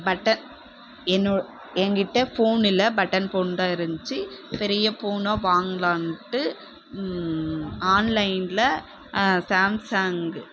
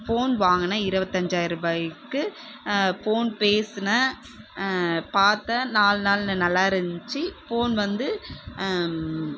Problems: background sounds at intervals